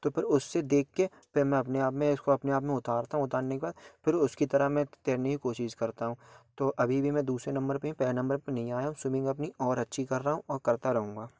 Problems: none marked